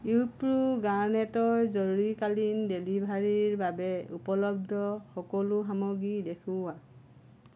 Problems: low volume